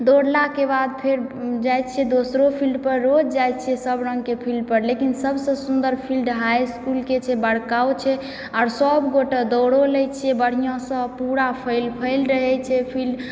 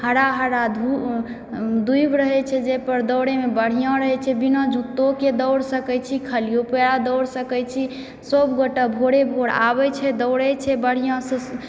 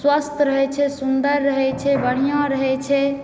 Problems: background sounds at intervals, background conversations at intervals